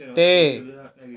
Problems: background sounds at intervals